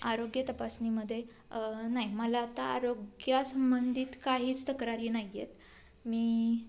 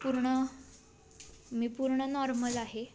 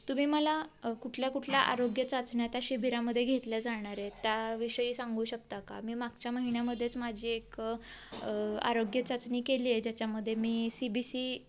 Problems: none marked